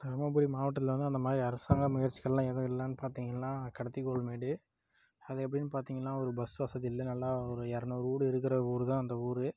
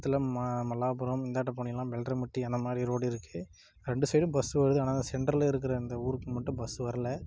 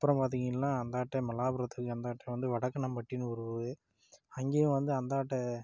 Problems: none marked